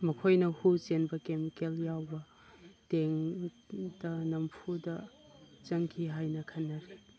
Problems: constant background noise